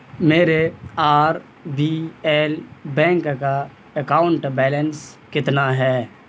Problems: constant background noise